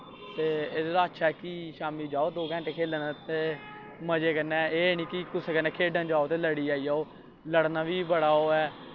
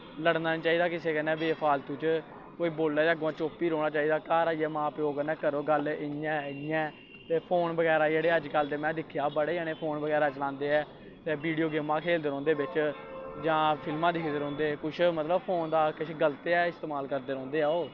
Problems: constant background noise